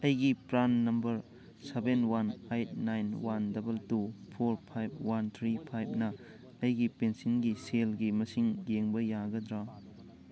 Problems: background sounds at intervals, background conversations at intervals